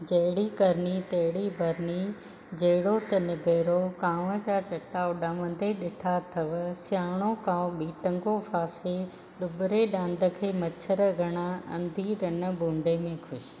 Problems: constant background noise